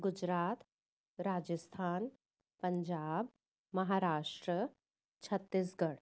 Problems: none marked